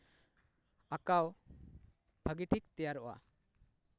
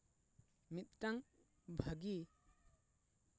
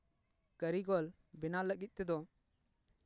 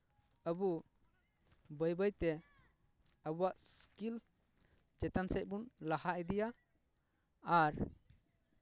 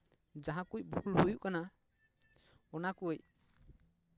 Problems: none marked